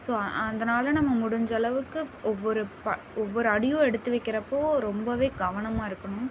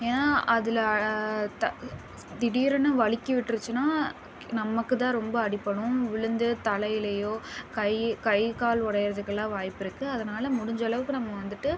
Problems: constant background noise